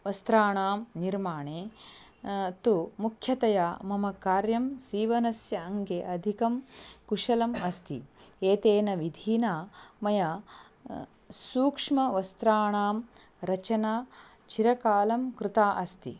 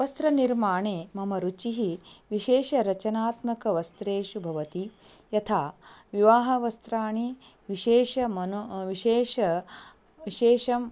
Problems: none marked